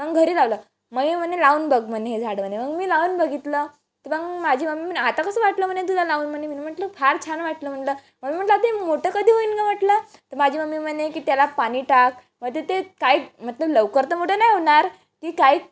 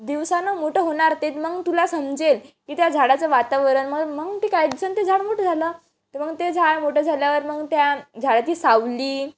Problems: none marked